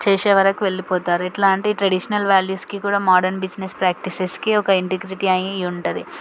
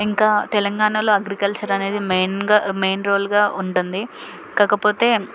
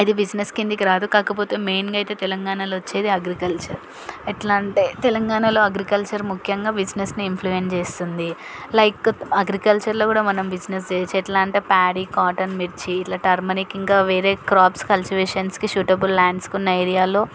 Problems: none marked